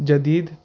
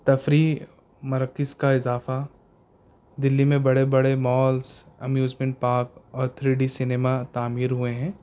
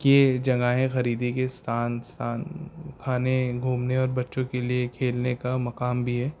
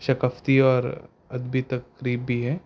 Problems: background sounds at intervals